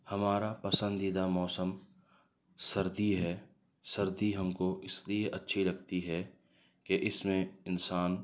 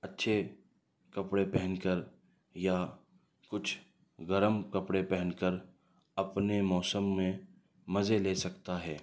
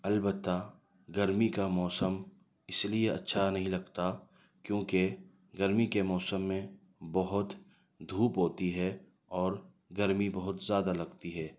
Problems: none marked